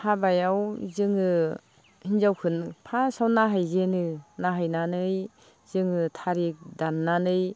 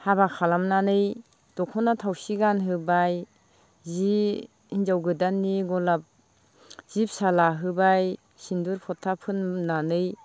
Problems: constant background noise